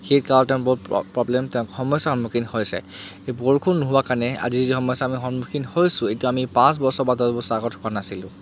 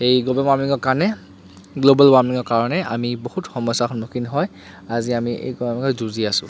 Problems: constant background noise